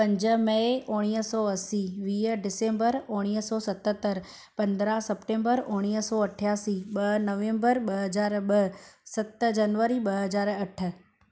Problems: none marked